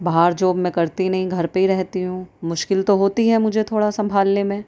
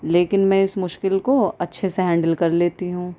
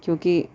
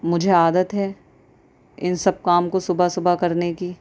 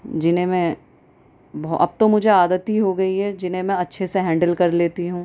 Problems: constant background noise